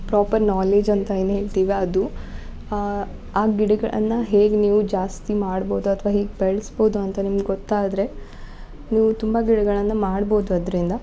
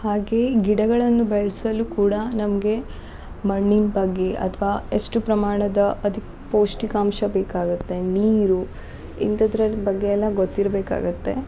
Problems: background sounds at intervals